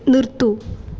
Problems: background sounds at intervals